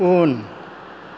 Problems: low volume